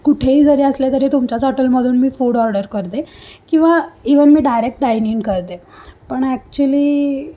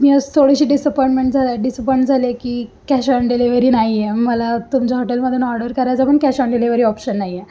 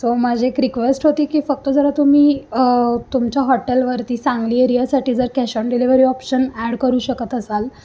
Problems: none marked